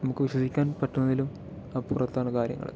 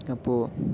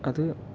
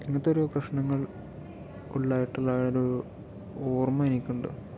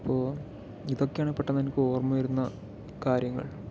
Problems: background conversations at intervals